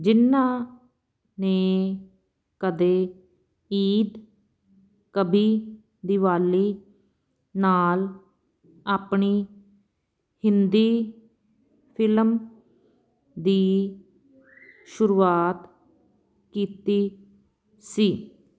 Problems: background sounds at intervals